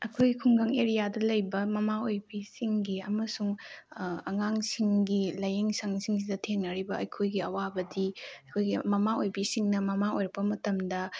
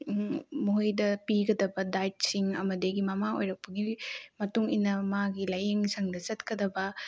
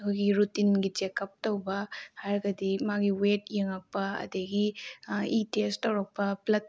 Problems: none marked